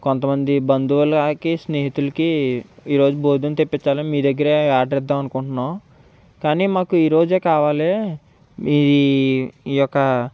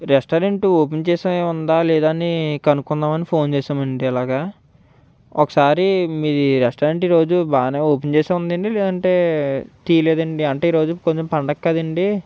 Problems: none marked